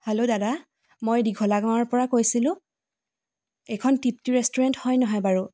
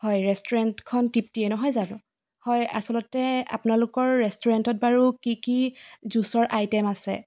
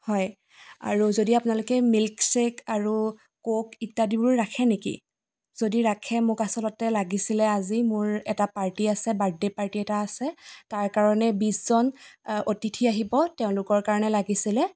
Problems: background sounds at intervals